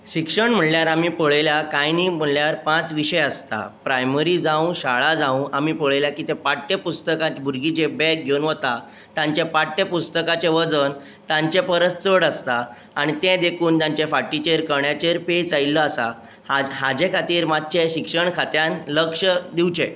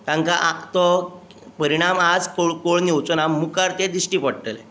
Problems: constant background noise